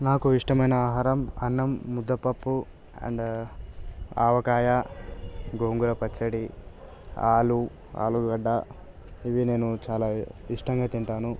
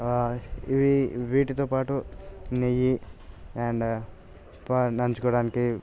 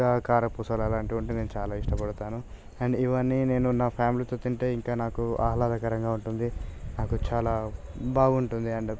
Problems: none marked